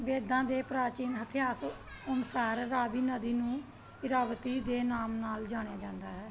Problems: background sounds at intervals, background conversations at intervals